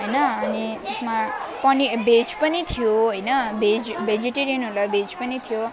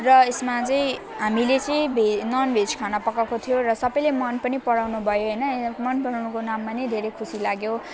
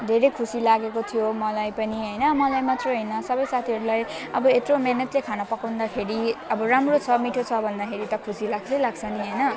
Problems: constant background noise